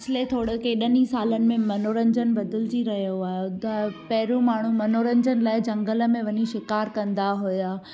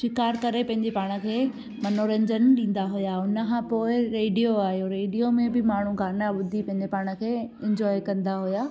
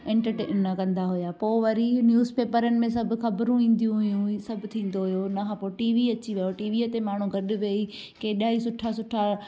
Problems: constant background noise